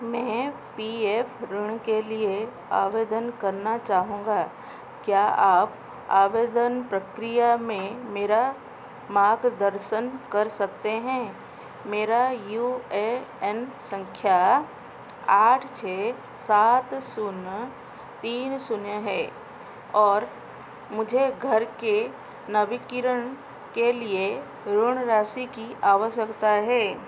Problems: constant background noise